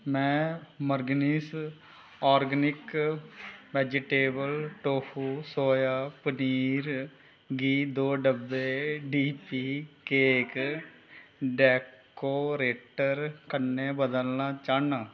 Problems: constant background noise